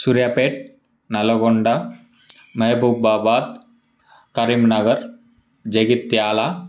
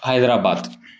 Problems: background sounds at intervals